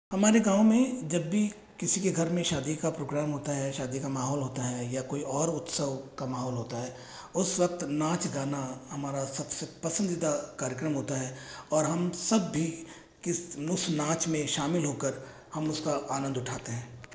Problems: echo